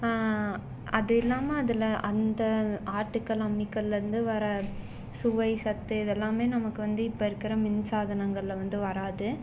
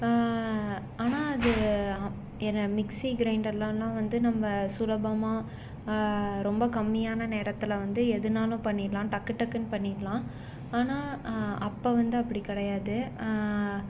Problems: background sounds at intervals